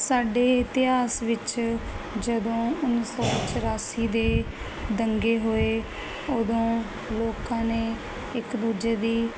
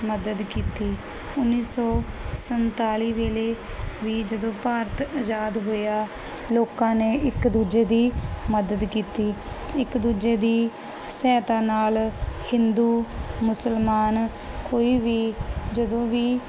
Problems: constant background noise